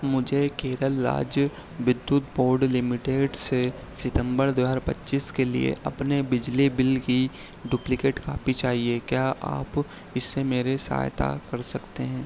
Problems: none marked